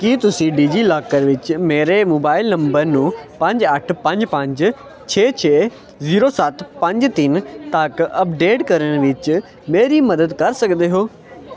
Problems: none marked